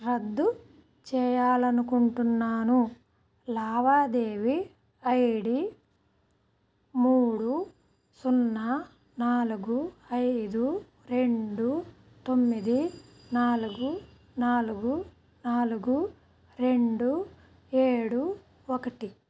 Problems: background sounds at intervals